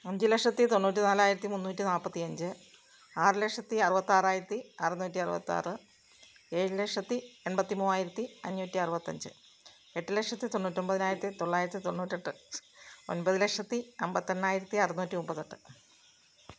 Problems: background sounds at intervals